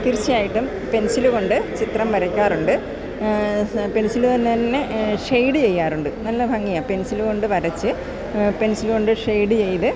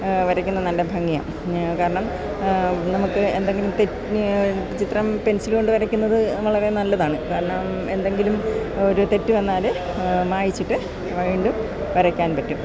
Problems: constant background noise